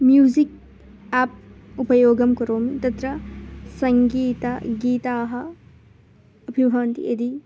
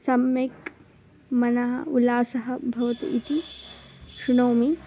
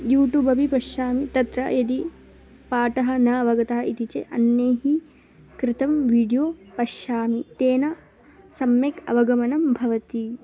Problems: background sounds at intervals